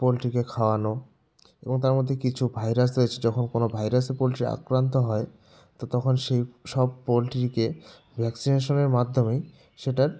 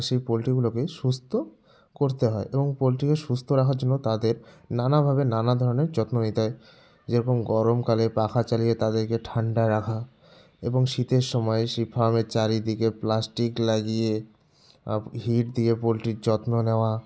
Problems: none marked